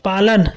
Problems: none marked